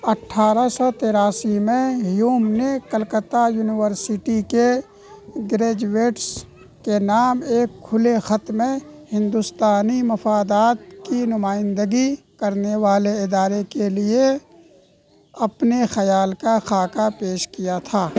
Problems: constant background noise